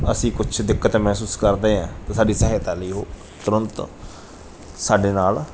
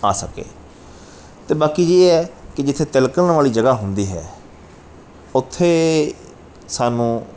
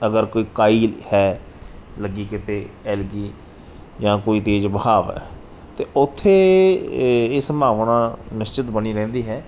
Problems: background sounds at intervals